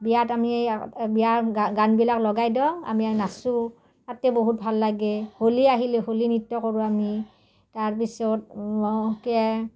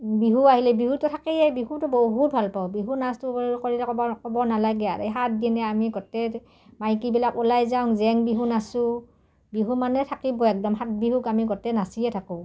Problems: none marked